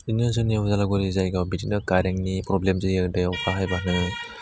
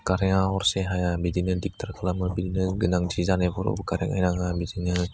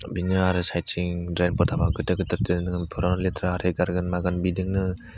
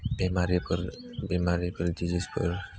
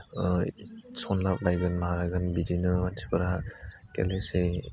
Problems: low volume